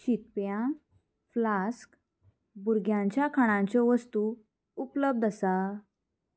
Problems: background sounds at intervals